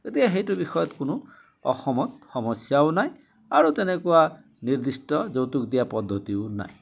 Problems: constant background noise, background conversations at intervals